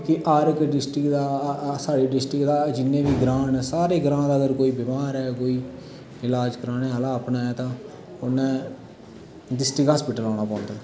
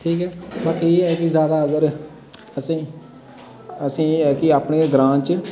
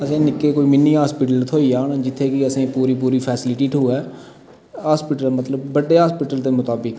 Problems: constant background noise, echo